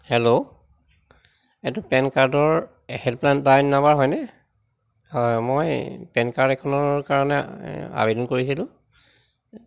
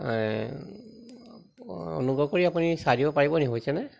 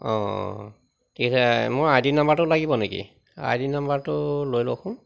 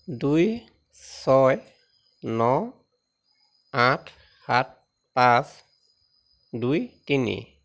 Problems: constant background noise